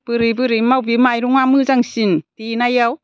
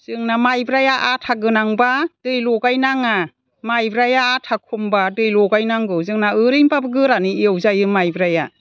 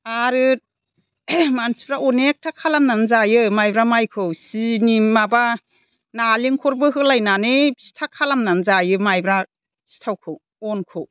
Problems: none marked